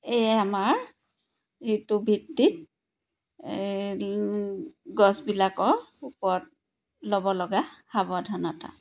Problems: none marked